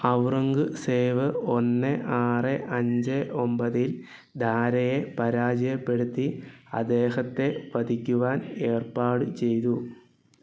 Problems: background sounds at intervals